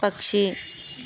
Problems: constant background noise